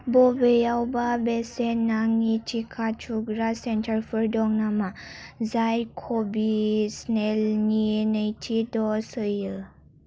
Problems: none marked